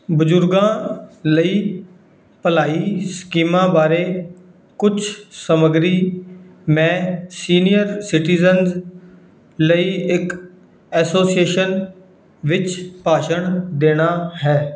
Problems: none marked